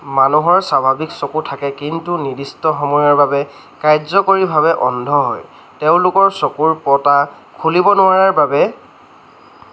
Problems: constant background noise